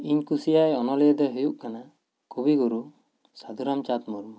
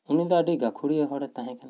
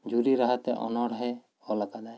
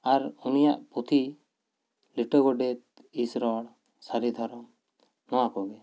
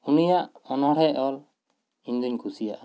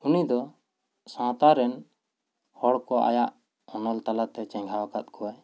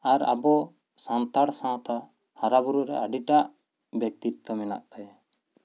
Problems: none marked